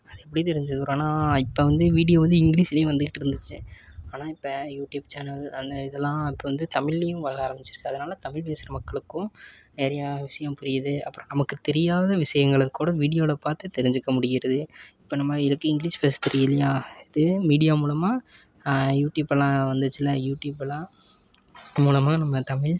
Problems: constant background noise